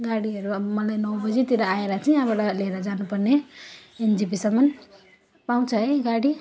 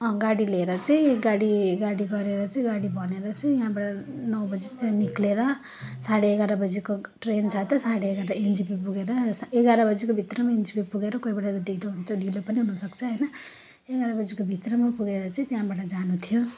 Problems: none marked